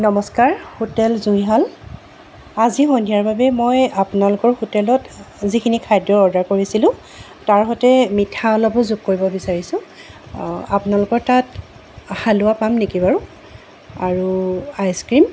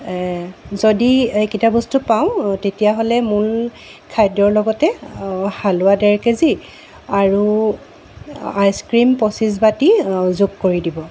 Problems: constant background noise